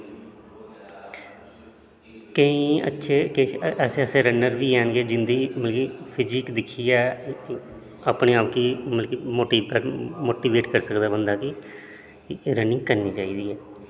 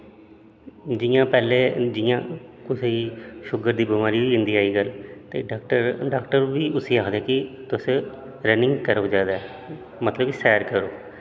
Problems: constant background noise, echo